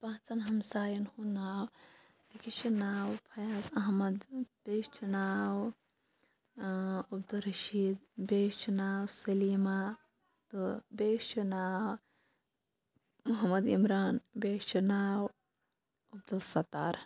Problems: constant background noise, low volume